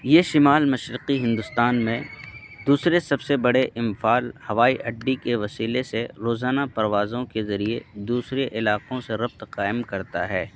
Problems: constant background noise